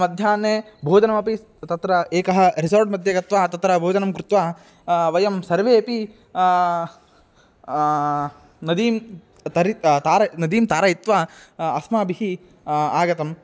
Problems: none marked